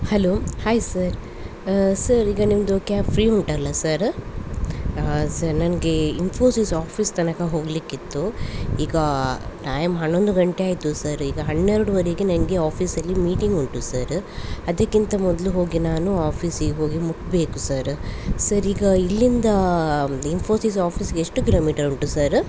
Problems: constant background noise